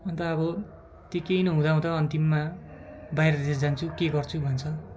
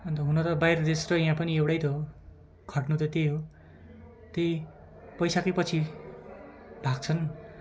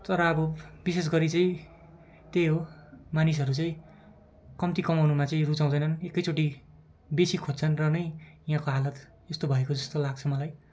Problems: none marked